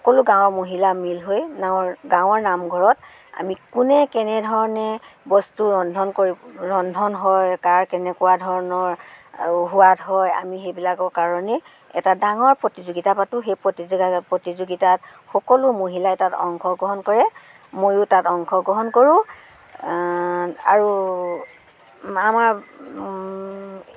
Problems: background sounds at intervals